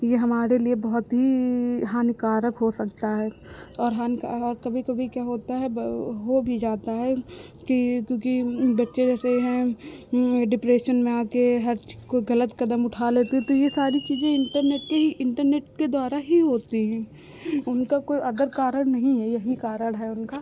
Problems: none marked